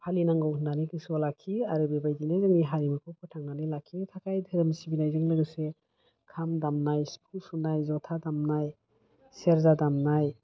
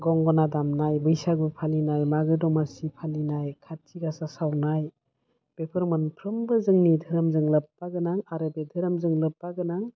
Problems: low volume